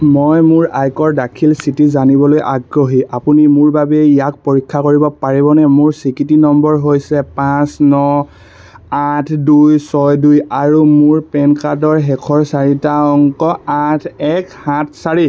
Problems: none marked